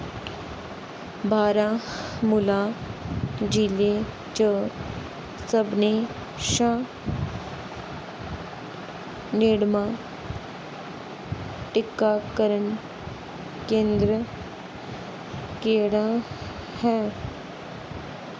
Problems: constant background noise